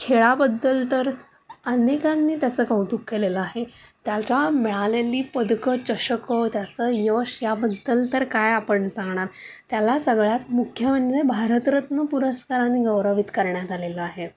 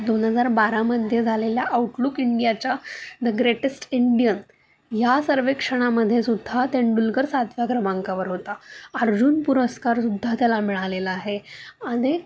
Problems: none marked